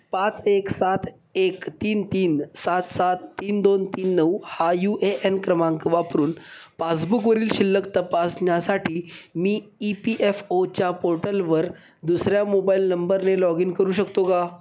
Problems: none marked